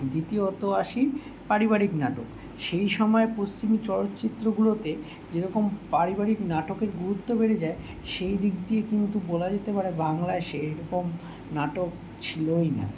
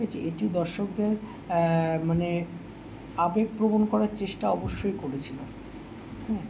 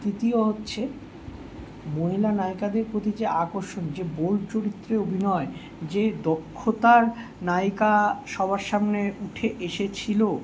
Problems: constant background noise